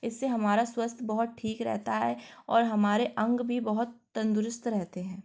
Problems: none marked